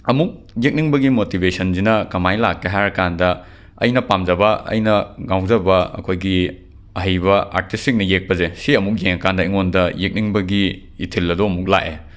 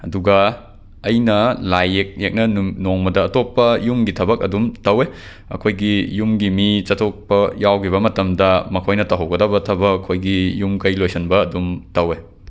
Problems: background sounds at intervals